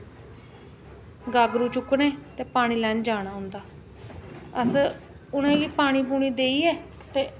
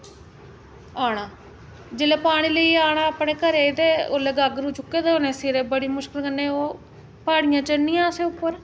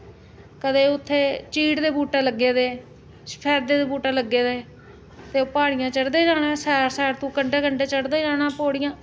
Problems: constant background noise